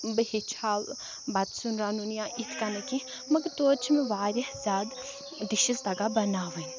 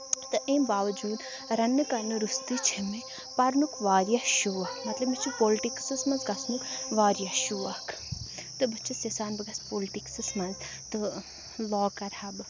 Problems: background sounds at intervals, background conversations at intervals